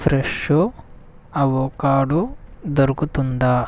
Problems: none marked